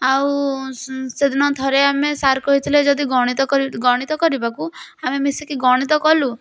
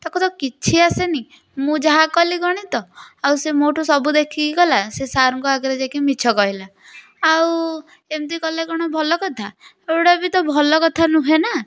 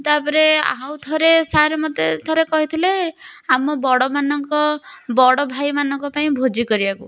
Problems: none marked